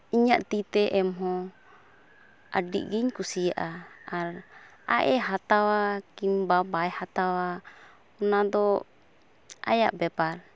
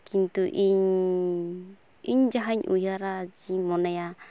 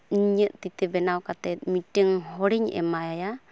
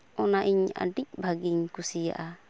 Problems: none marked